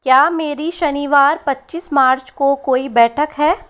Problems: constant background noise